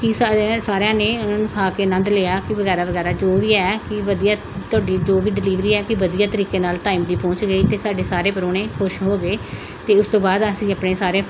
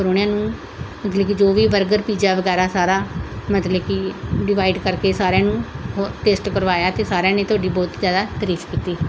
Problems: constant background noise